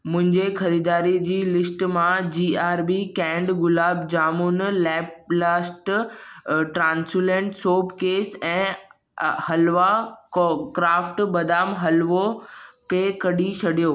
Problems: none marked